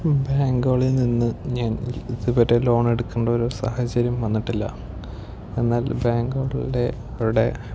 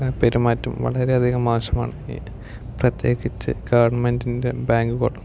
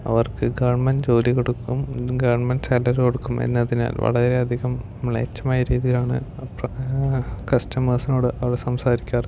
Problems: low volume